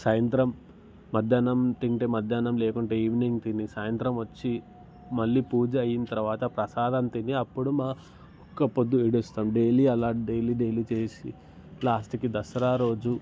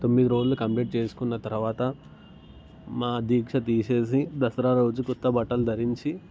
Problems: background sounds at intervals